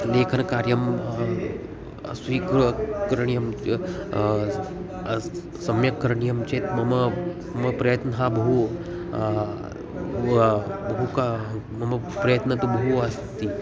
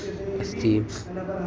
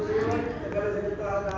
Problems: continuous background conversations